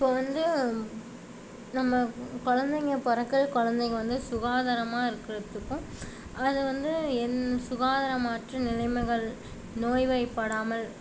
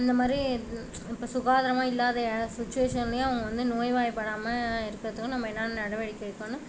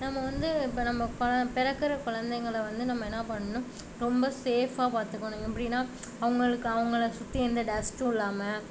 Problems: constant background noise